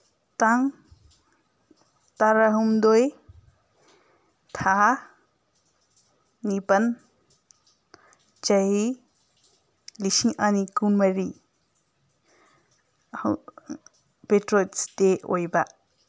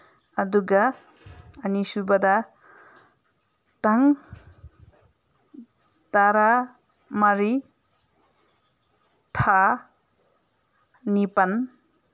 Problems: none marked